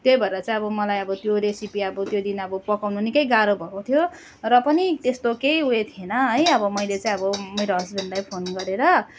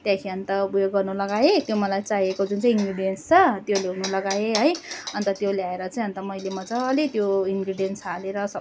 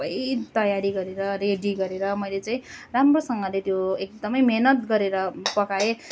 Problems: constant background noise